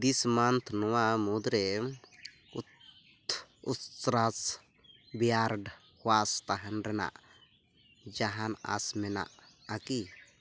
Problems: constant background noise